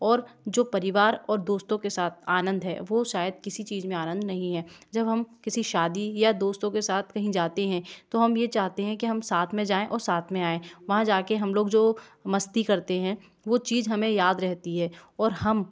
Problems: background sounds at intervals